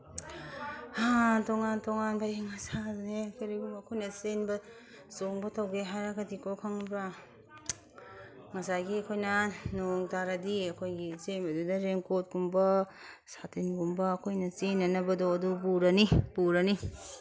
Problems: background sounds at intervals